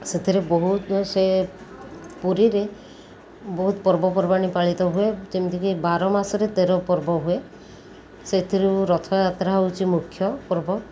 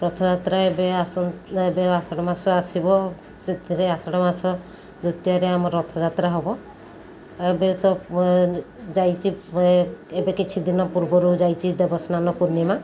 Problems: continuous background conversations